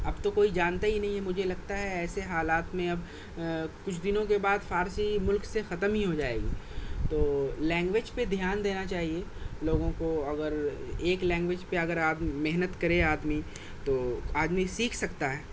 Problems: constant background noise